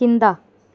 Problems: constant background noise